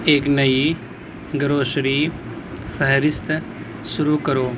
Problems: constant background noise